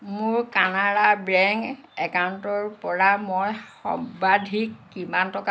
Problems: constant background noise